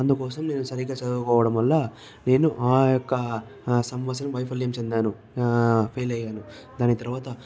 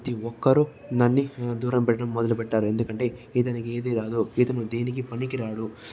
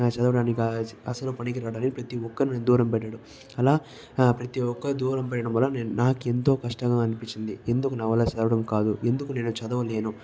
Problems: background sounds at intervals, background conversations at intervals